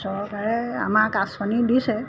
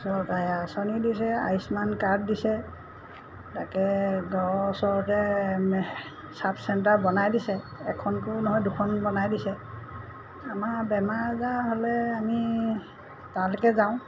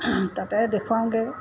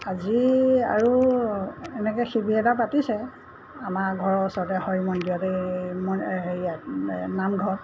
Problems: constant background noise